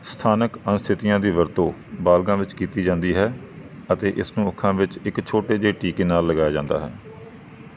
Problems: background sounds at intervals